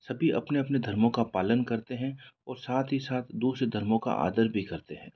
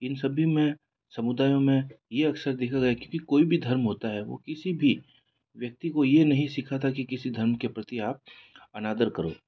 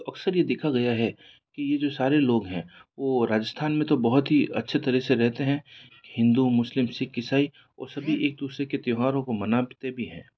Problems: background sounds at intervals